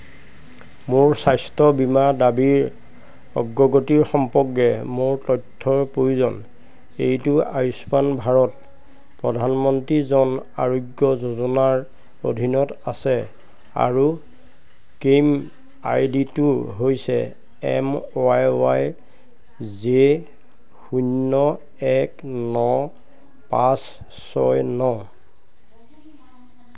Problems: constant background noise